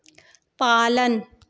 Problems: echo